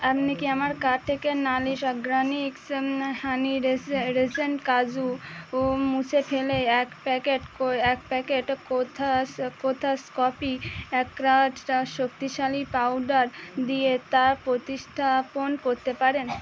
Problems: constant background noise